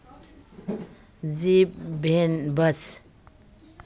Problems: background sounds at intervals, background conversations at intervals